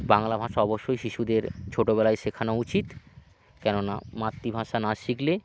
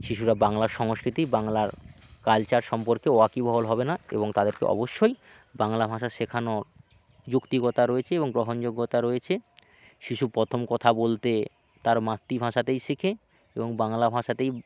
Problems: none marked